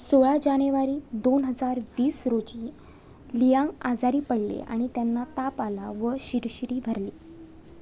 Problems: none marked